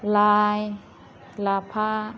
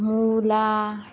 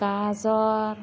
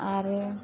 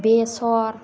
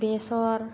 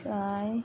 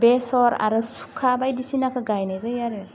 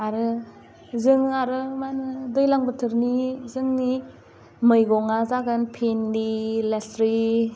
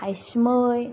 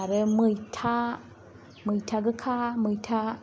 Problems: constant background noise